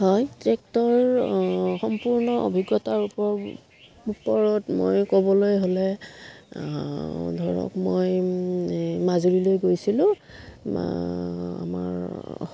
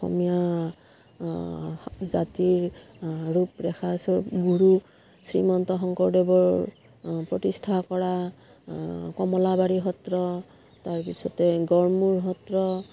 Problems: background sounds at intervals